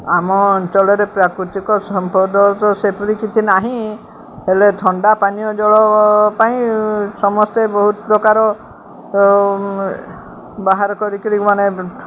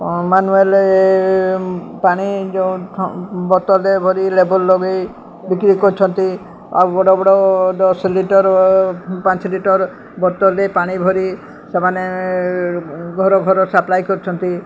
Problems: constant background noise